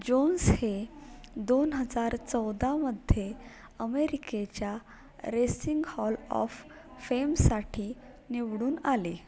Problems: background conversations at intervals